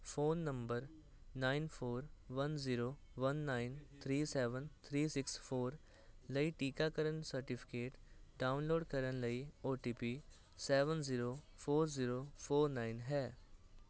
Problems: constant background noise